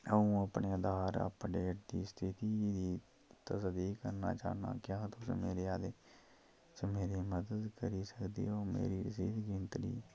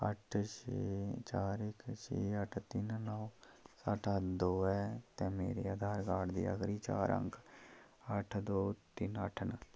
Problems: low volume